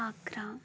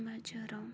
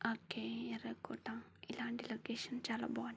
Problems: low volume